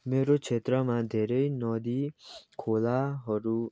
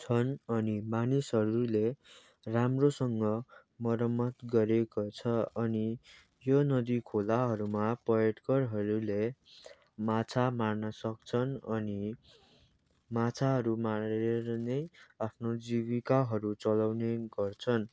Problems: background sounds at intervals